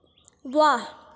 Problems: none marked